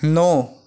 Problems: none marked